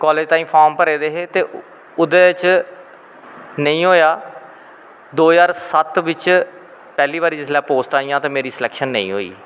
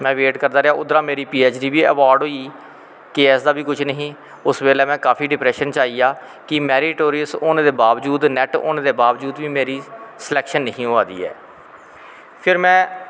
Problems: constant background noise, echo